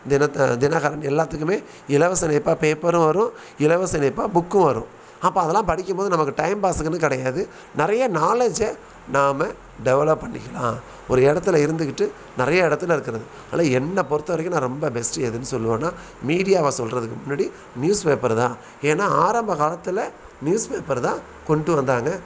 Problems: none marked